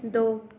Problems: background sounds at intervals